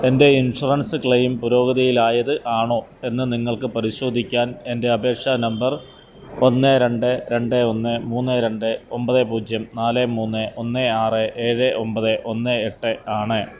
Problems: none marked